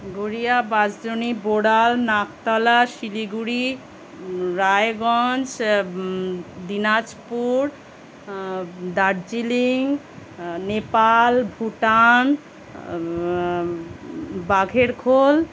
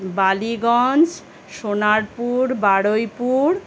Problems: none marked